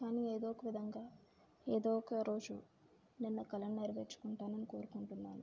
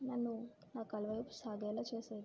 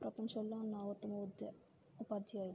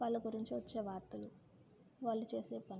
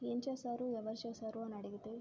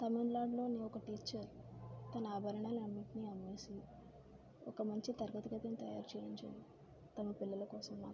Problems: low volume